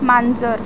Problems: none marked